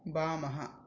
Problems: none marked